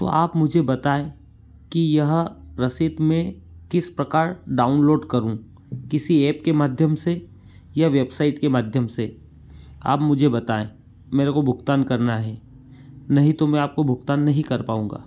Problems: none marked